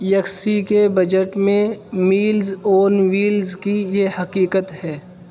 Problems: constant background noise